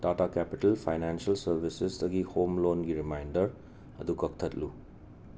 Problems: none marked